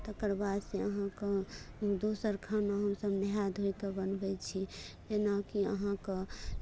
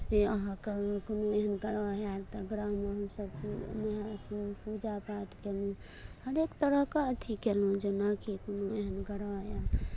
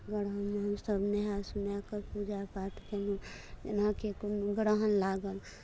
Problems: low volume